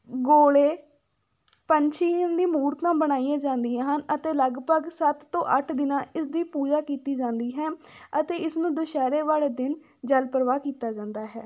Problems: none marked